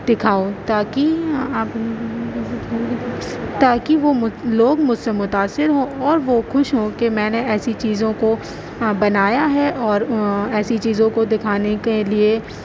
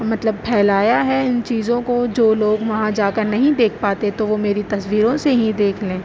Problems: constant background noise, background conversations at intervals